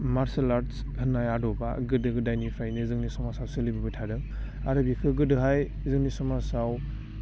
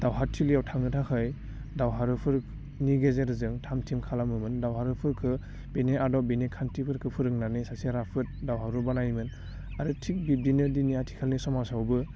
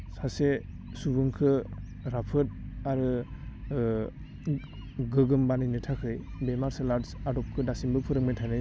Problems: constant background noise